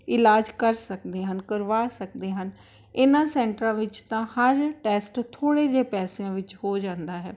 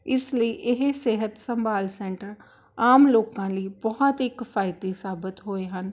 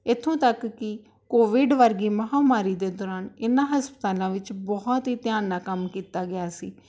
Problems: background sounds at intervals